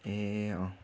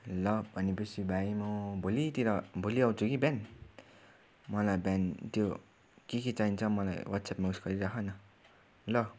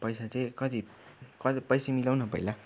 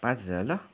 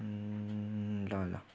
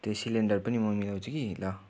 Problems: none marked